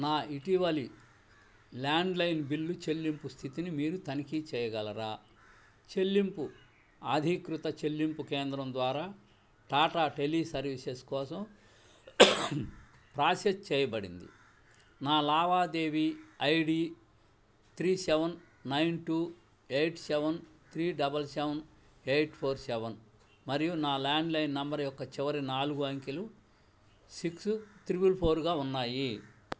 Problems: none marked